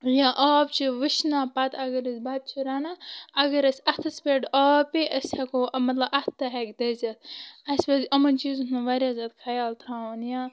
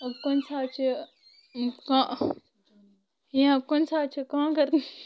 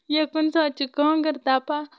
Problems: constant background noise